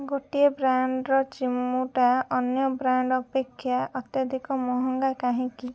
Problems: low volume